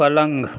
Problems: constant background noise, continuous background conversations